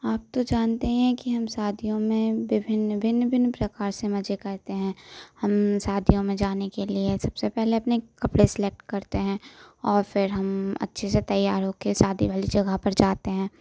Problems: constant background noise